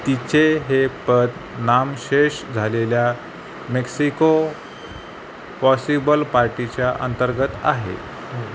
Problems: constant background noise